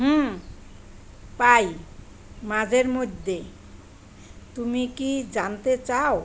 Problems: none marked